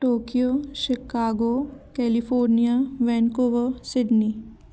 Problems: constant background noise, background conversations at intervals